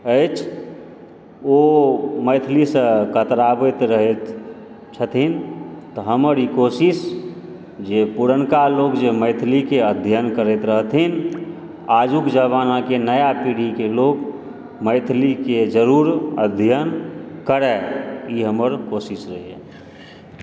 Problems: background sounds at intervals